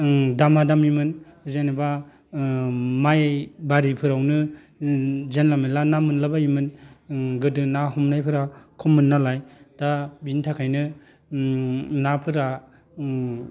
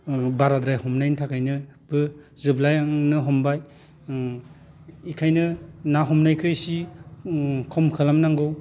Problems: none marked